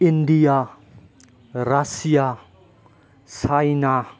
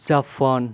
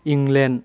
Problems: low volume